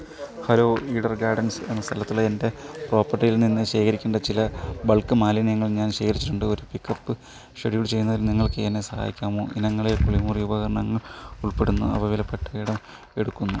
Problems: background sounds at intervals